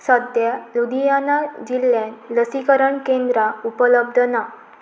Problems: constant background noise